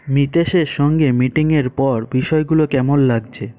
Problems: background sounds at intervals